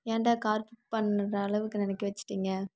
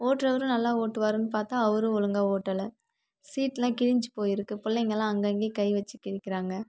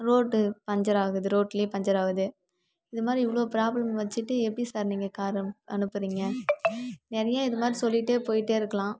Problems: constant background noise